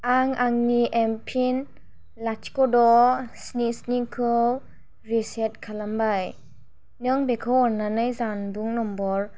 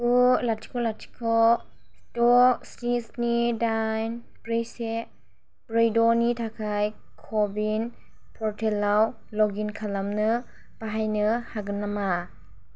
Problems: none marked